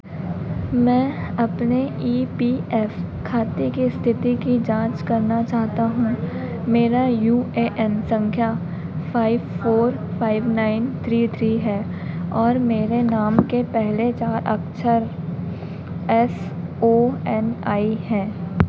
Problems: none marked